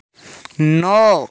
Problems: background sounds at intervals